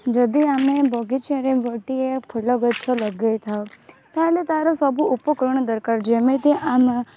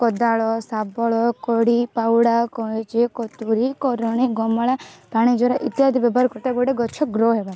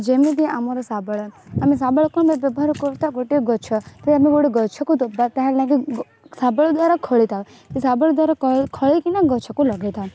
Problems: constant background noise